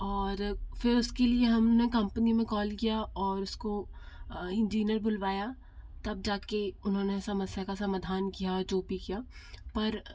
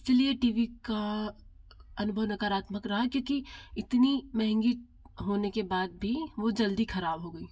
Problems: constant background noise